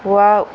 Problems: constant background noise